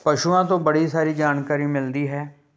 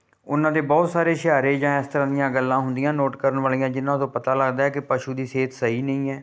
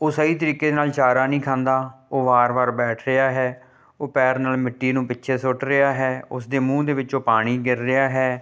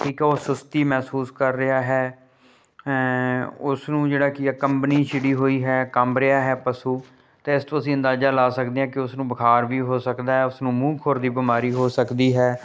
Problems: none marked